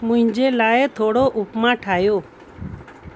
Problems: constant background noise